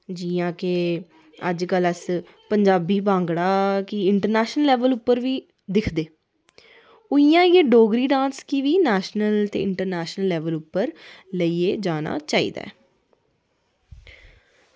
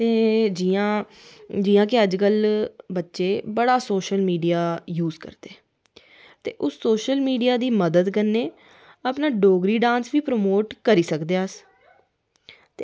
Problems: none marked